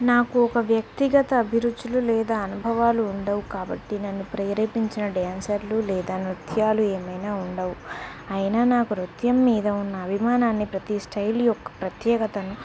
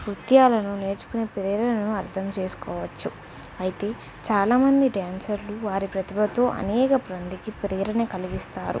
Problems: none marked